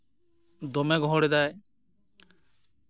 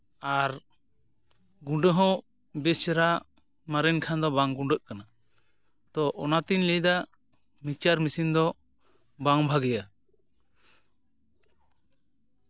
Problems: none marked